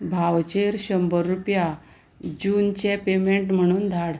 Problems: none marked